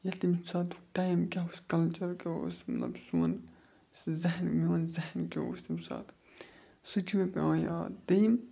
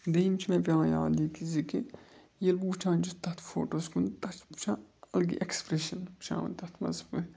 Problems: constant background noise